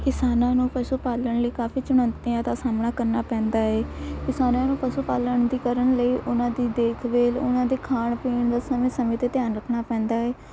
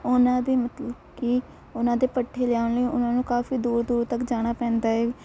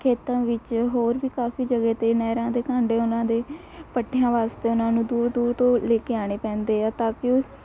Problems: constant background noise